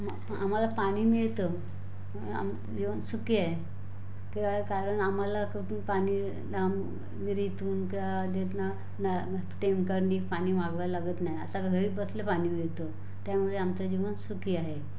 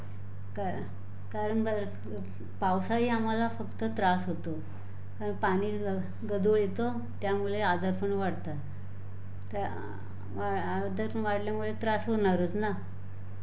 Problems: none marked